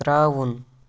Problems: none marked